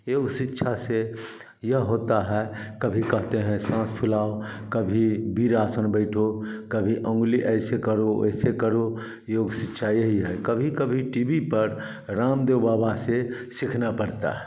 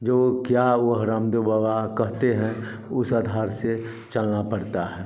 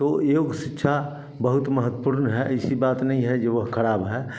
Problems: none marked